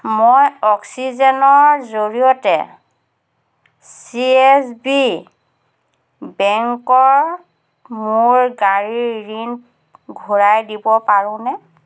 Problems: constant background noise